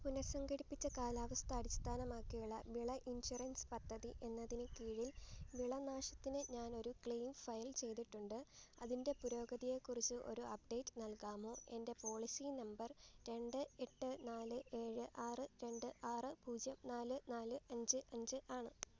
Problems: background sounds at intervals, low volume